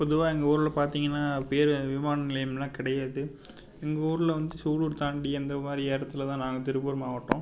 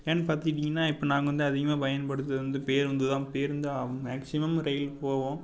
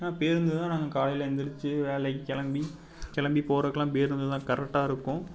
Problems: background sounds at intervals